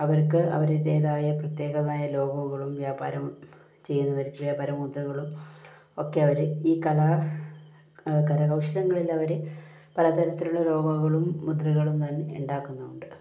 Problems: low volume